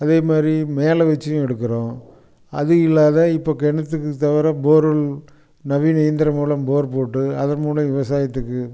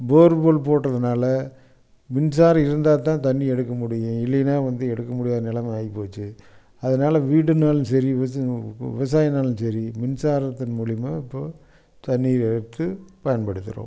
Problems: background sounds at intervals